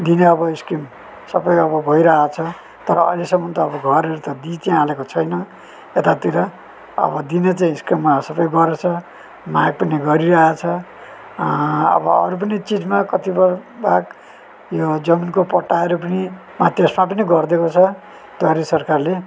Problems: none marked